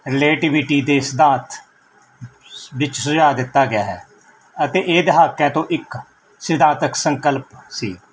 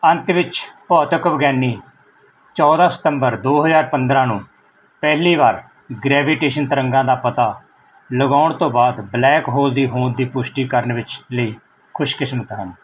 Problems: none marked